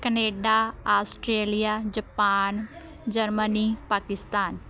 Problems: continuous background conversations